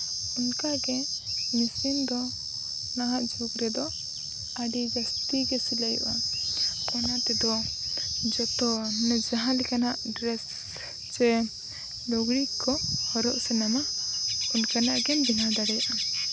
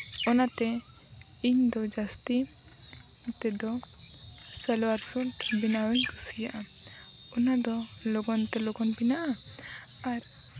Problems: background sounds at intervals